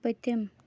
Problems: none marked